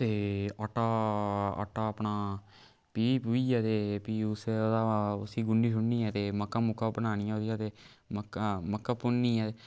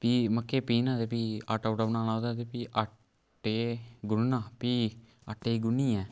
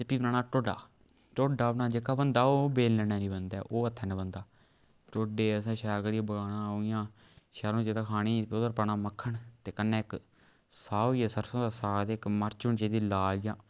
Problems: background sounds at intervals